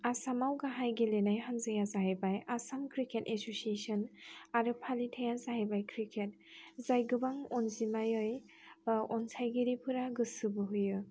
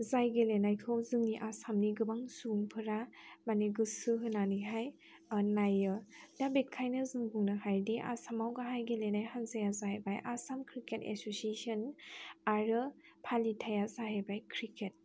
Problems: none marked